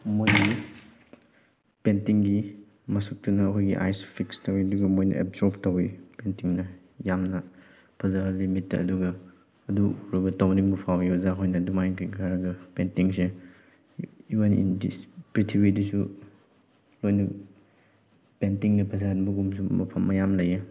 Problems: background sounds at intervals